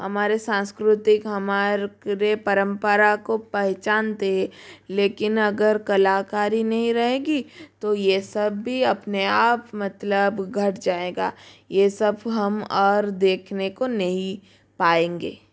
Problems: constant background noise